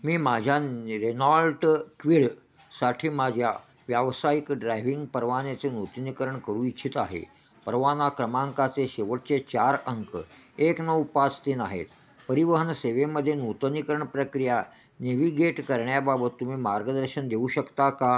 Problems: constant background noise